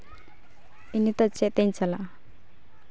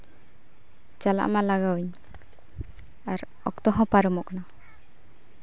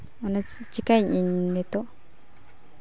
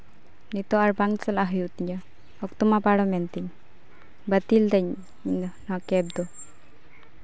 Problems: none marked